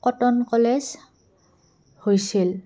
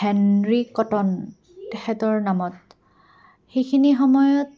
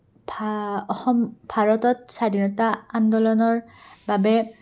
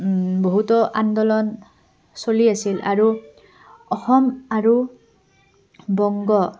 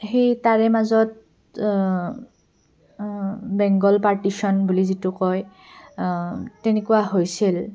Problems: background sounds at intervals, background conversations at intervals